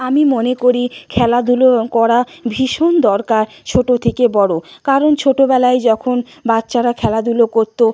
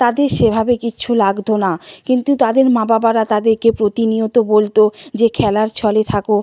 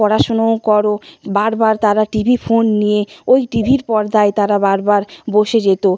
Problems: constant background noise